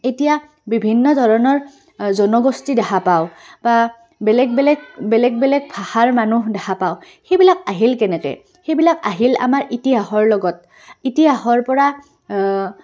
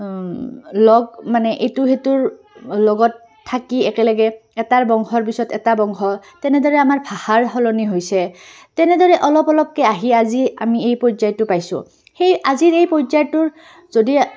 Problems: background conversations at intervals